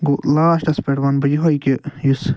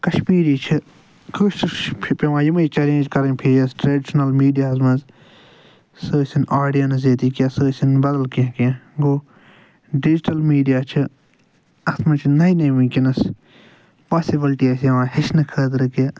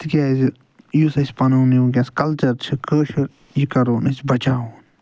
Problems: none marked